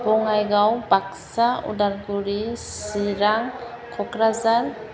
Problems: background conversations at intervals